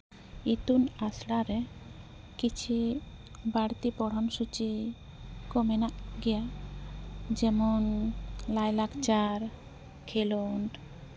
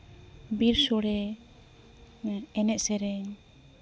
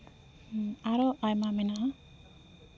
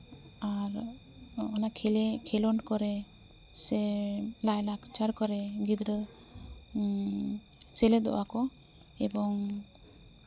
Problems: background sounds at intervals